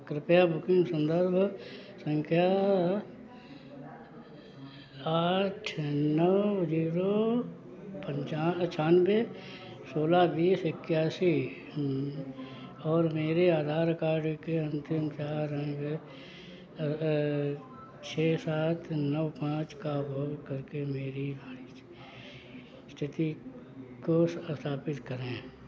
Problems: background sounds at intervals